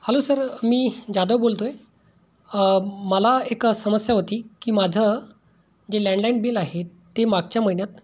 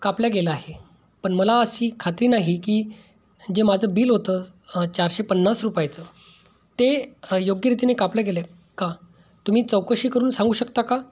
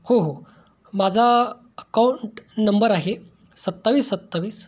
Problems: background sounds at intervals